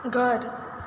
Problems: constant background noise